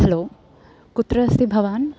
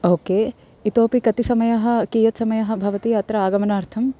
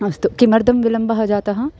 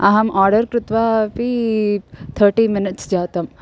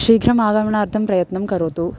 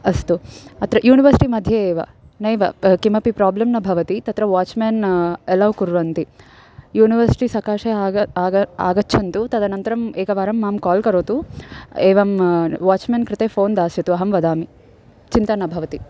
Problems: background sounds at intervals